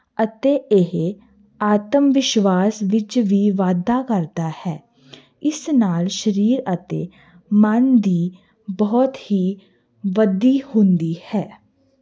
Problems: none marked